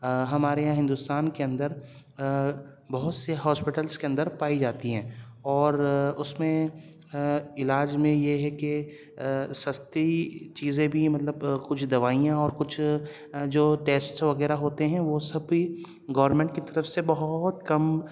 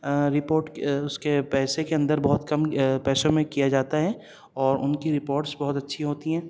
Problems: none marked